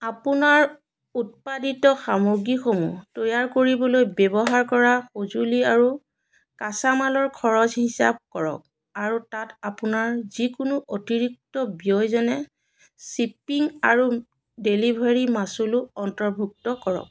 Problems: constant background noise